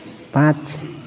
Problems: none marked